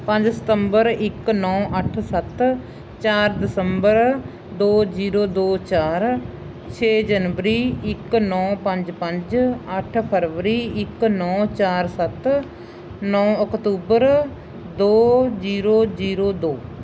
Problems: none marked